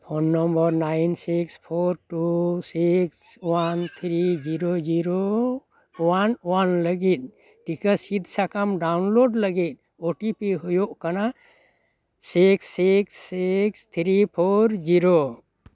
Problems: none marked